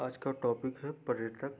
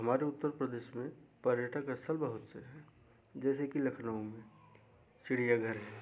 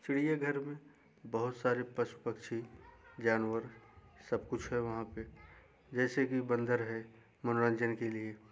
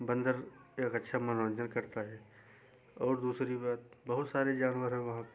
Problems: none marked